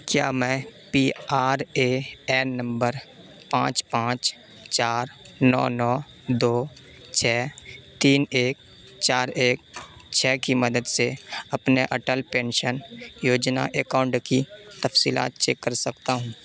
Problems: constant background noise